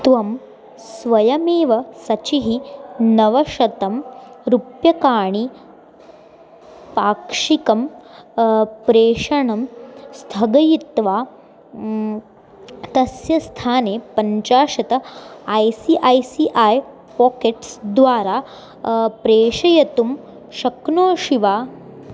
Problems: constant background noise